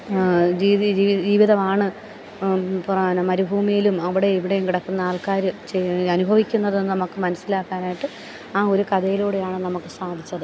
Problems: background sounds at intervals, low volume